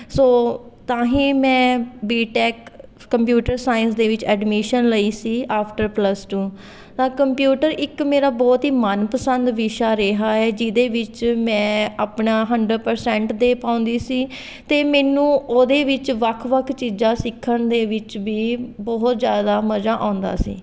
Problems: continuous background conversations